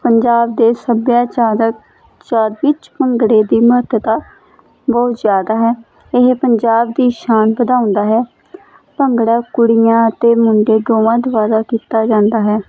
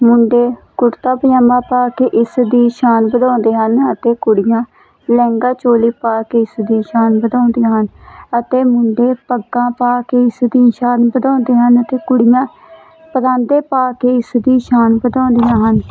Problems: constant background noise